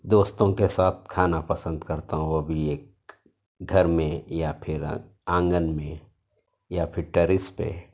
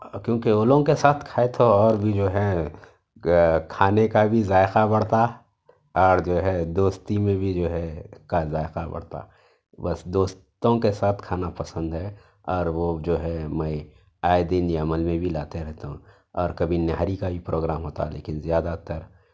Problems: background sounds at intervals